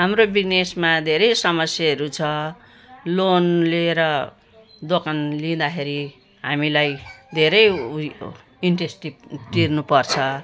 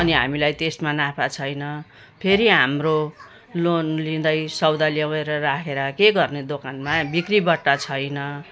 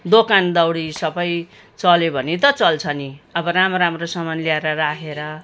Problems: background sounds at intervals